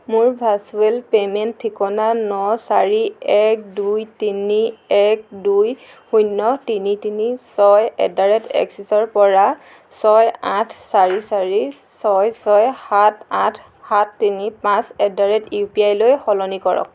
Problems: background sounds at intervals